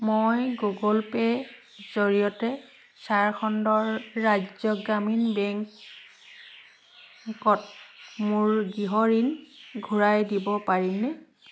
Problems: constant background noise